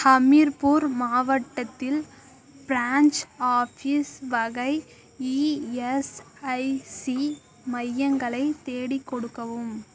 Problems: constant background noise